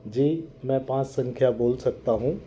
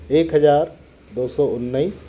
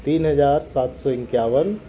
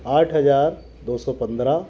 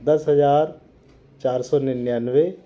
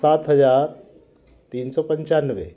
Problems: background sounds at intervals, background conversations at intervals